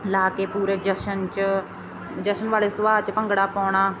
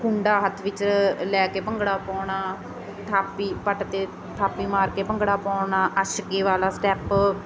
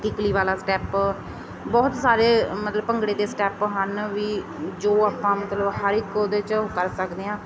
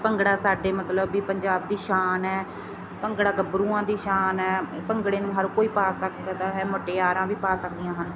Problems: constant background noise